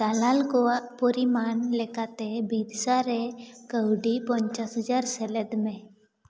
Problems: echo